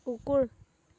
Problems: none marked